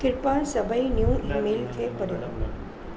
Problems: constant background noise, background conversations at intervals, low volume